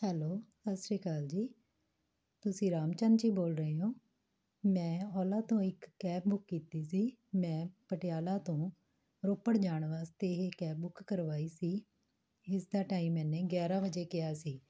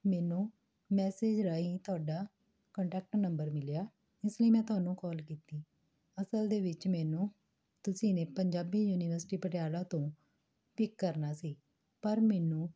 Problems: none marked